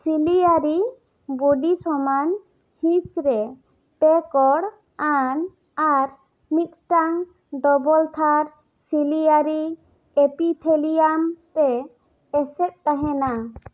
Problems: none marked